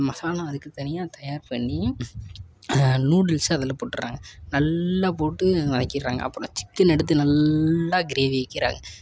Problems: none marked